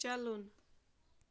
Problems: background sounds at intervals